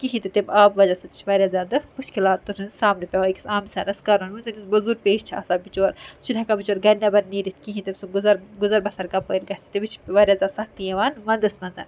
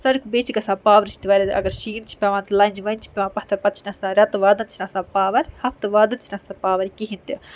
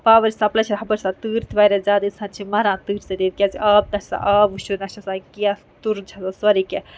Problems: background sounds at intervals